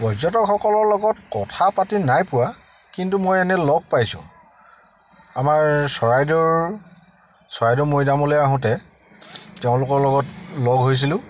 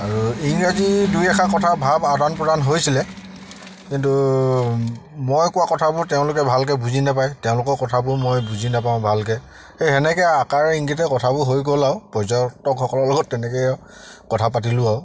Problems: none marked